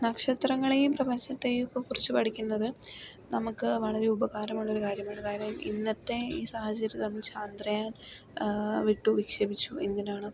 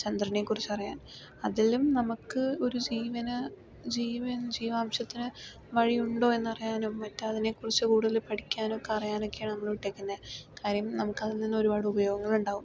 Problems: low volume